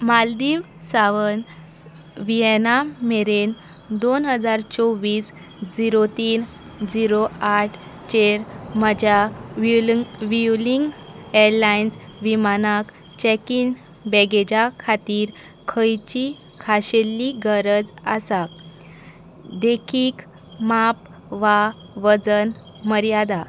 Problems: constant background noise